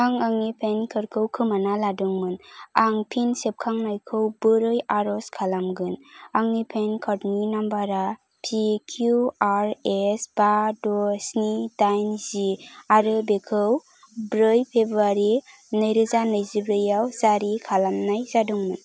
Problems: none marked